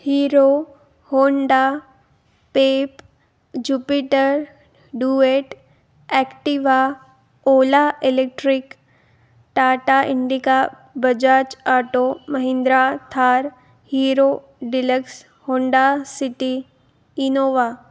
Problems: background sounds at intervals